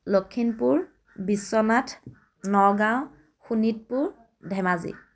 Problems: constant background noise, background conversations at intervals